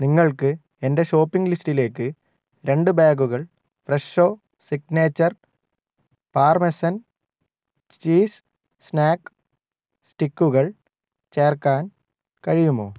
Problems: none marked